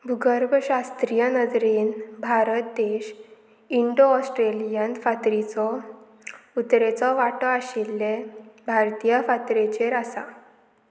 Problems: constant background noise